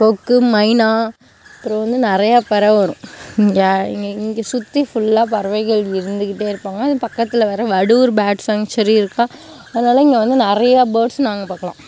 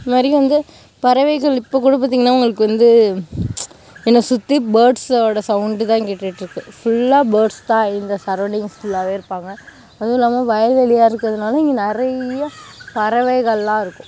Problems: background sounds at intervals